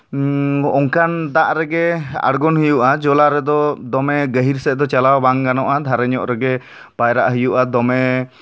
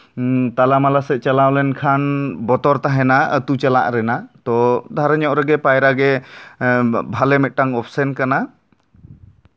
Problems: none marked